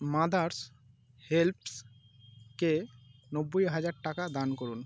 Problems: constant background noise